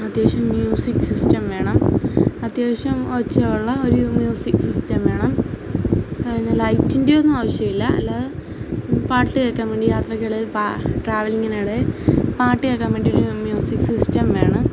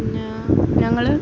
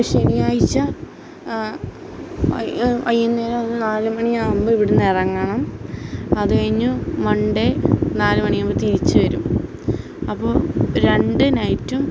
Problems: constant background noise